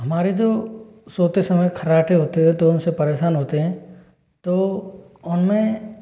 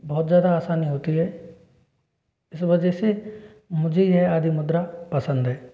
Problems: background sounds at intervals